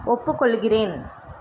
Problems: constant background noise